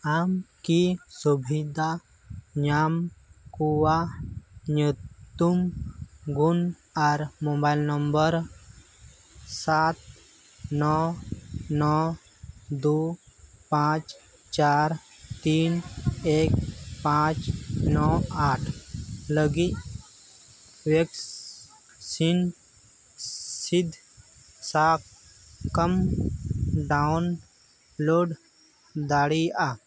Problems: background sounds at intervals